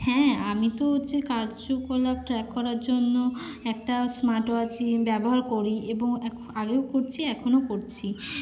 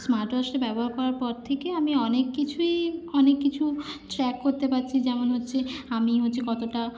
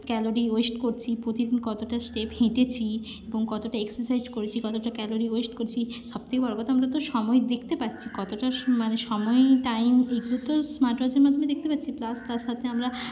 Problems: none marked